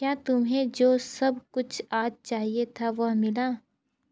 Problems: low volume